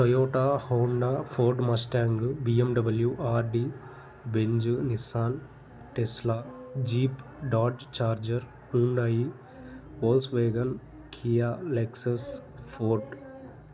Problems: constant background noise